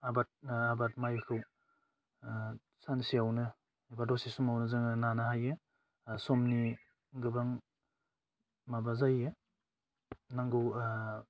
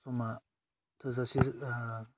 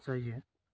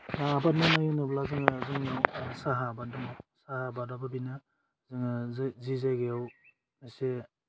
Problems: constant background noise